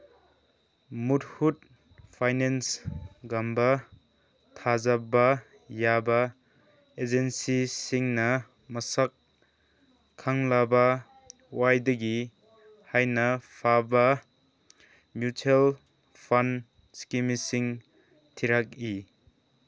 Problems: background sounds at intervals